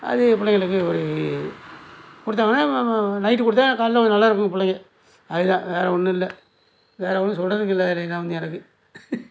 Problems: background sounds at intervals